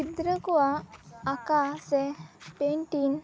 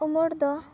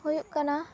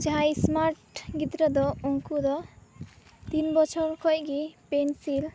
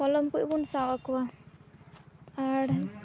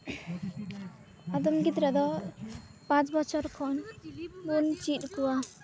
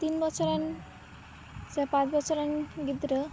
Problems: constant background noise, continuous background conversations